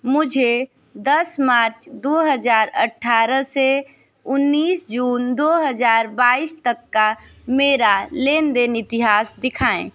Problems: constant background noise